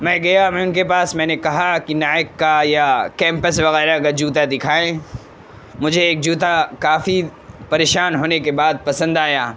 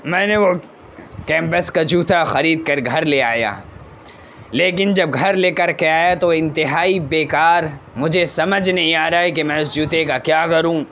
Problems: constant background noise